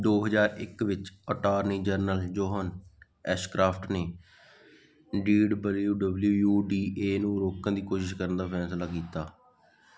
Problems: none marked